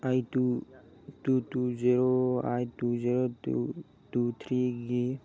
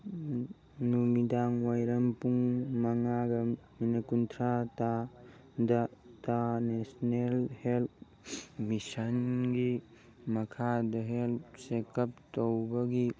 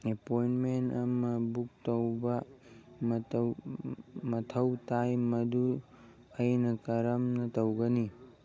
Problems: background sounds at intervals, background conversations at intervals